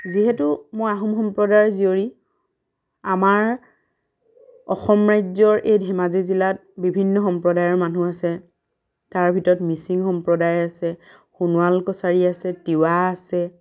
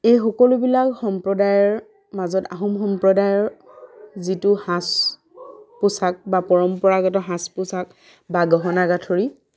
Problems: none marked